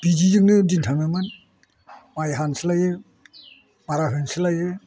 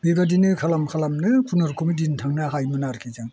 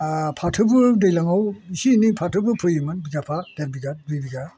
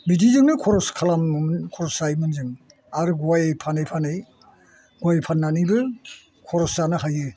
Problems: none marked